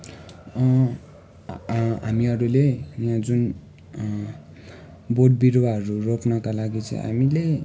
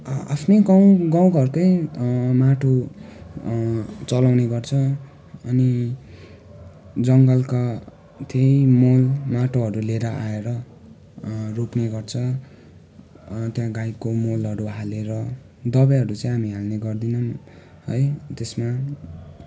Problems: constant background noise